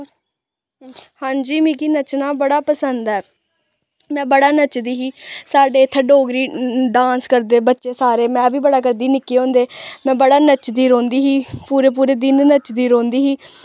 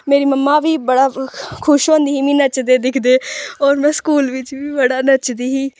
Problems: background sounds at intervals